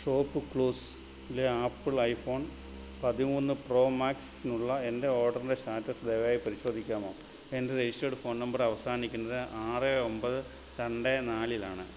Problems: constant background noise, low volume